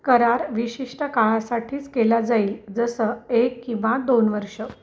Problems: background sounds at intervals